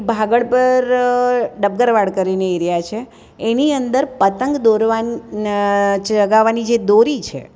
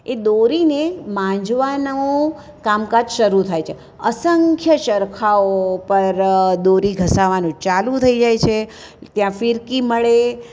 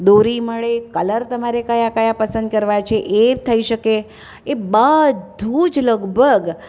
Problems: none marked